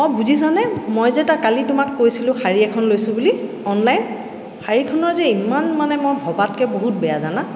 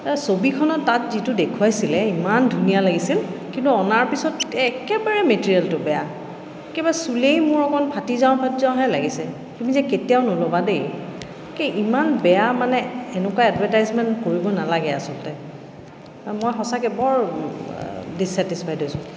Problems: echo